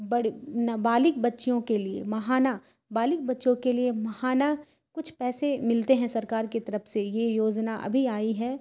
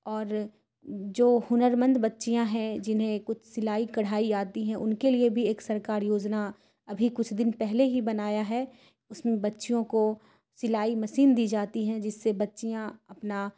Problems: none marked